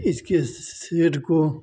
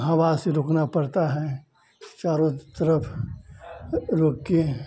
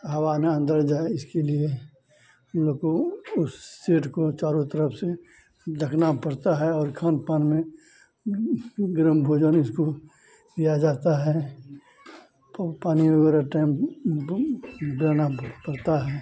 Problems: constant background noise, continuous background conversations, low volume